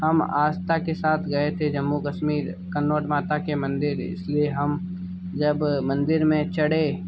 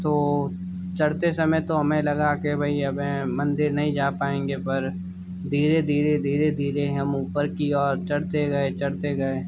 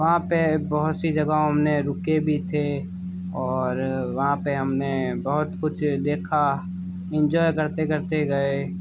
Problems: background sounds at intervals